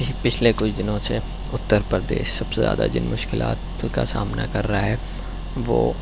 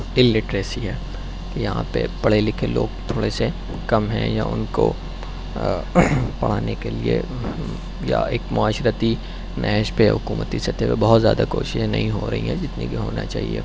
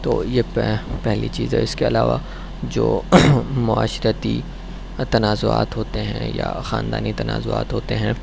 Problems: none marked